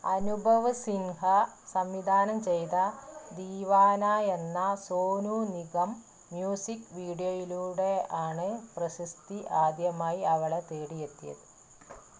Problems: low volume